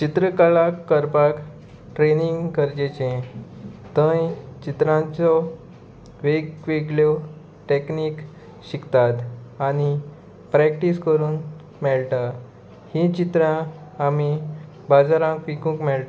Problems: constant background noise